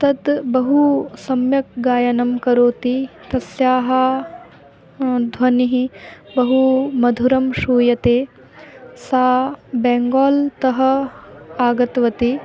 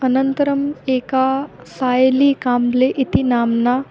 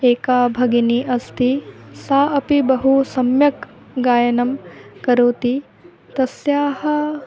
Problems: background sounds at intervals